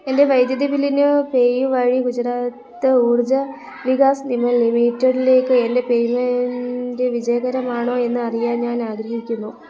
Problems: background conversations at intervals, low volume